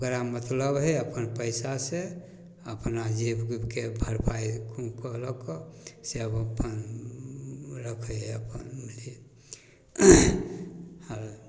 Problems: none marked